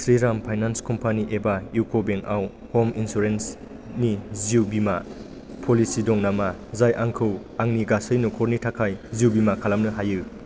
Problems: constant background noise